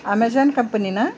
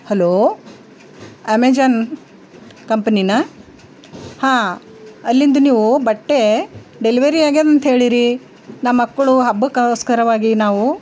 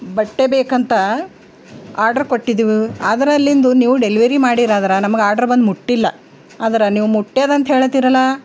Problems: background sounds at intervals